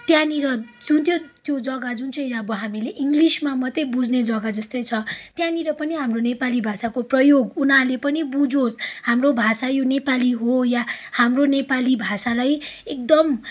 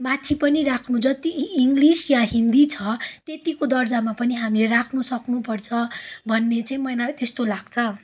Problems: background sounds at intervals, background conversations at intervals